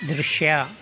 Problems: background sounds at intervals